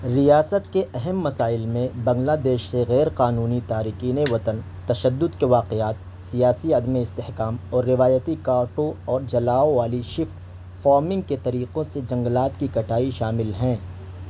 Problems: constant background noise